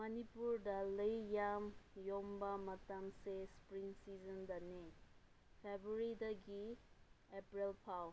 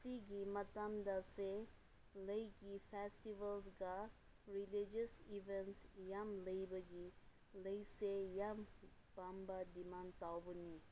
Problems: low volume